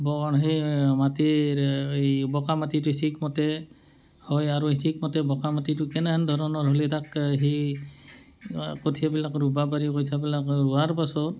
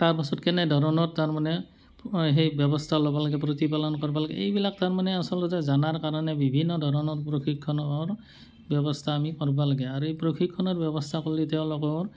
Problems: none marked